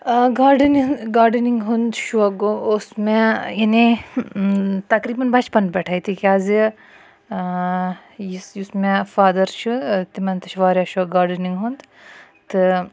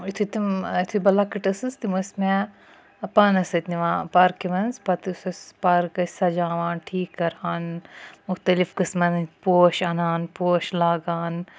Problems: constant background noise